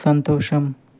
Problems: none marked